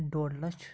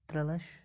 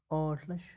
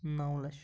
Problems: none marked